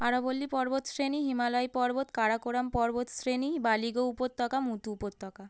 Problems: none marked